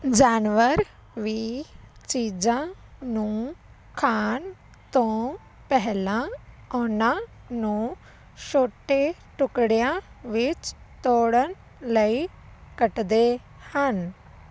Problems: constant background noise